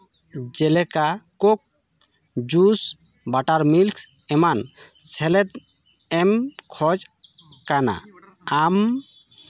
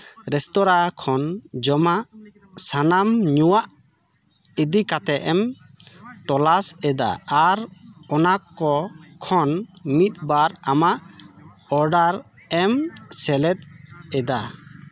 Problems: constant background noise, continuous background conversations